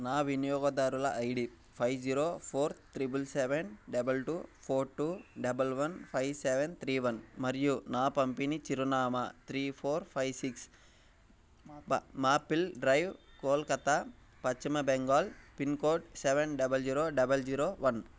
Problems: background sounds at intervals